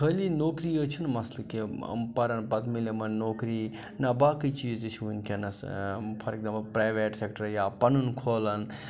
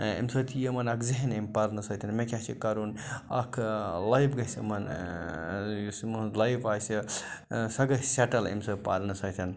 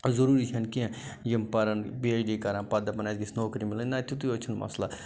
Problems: none marked